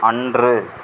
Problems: none marked